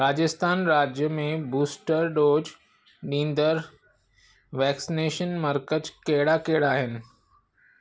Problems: constant background noise